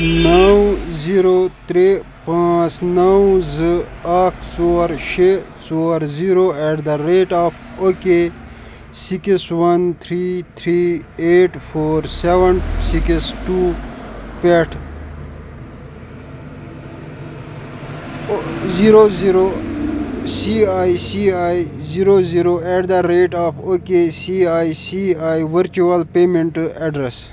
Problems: constant background noise